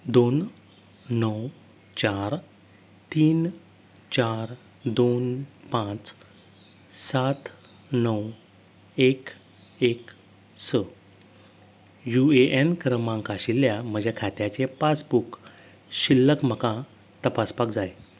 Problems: none marked